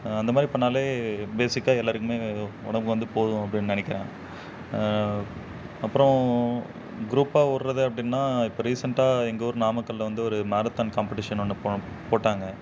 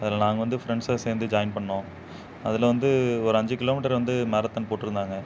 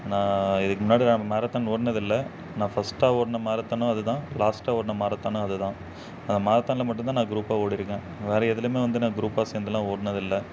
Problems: none marked